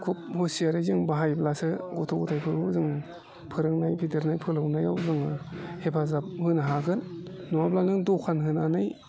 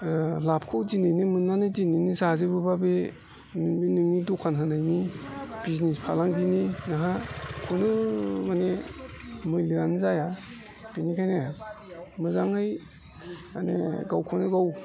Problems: constant background noise